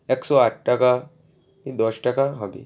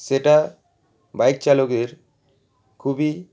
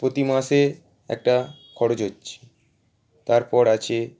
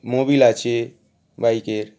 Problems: background sounds at intervals